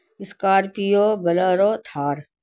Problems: constant background noise